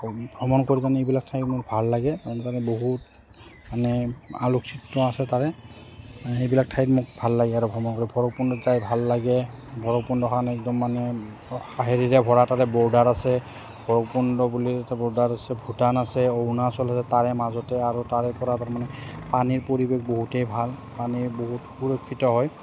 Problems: none marked